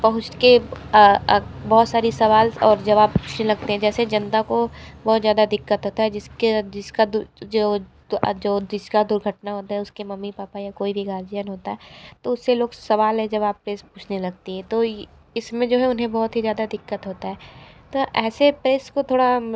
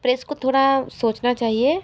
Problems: constant background noise